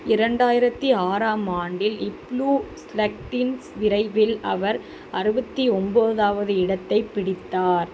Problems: constant background noise